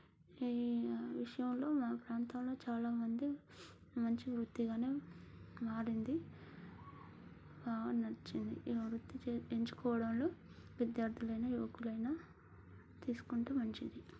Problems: none marked